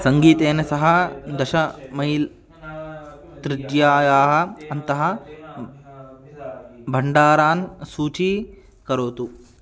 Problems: background conversations at intervals